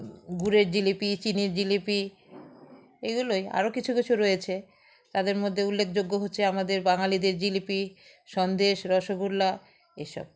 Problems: background sounds at intervals